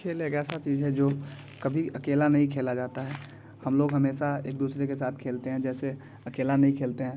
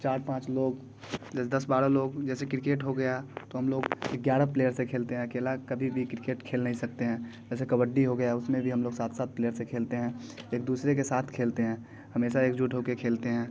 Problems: constant background noise, background conversations at intervals